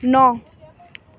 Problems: continuous background conversations